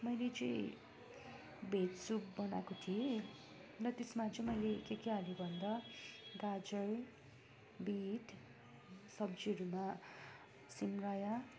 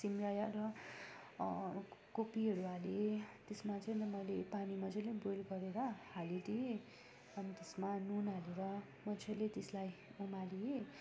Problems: continuous background conversations